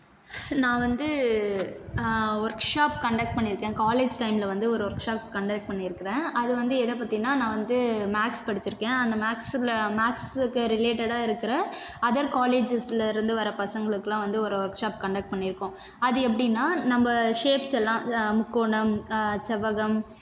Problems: constant background noise